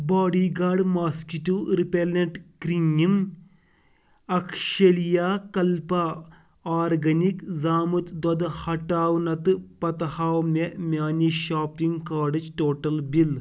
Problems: none marked